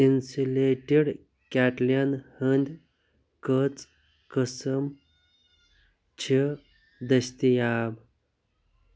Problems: low volume